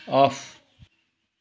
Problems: none marked